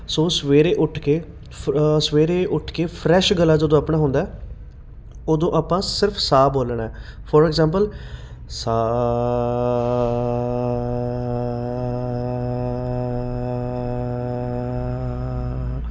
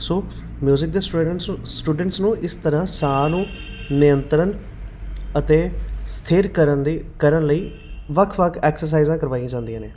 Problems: none marked